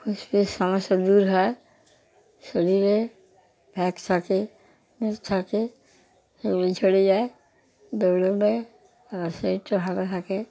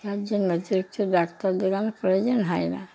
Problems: constant background noise